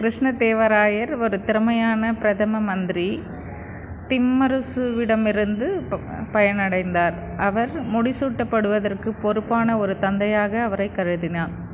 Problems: constant background noise